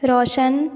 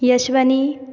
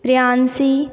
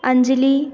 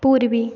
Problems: constant background noise, echo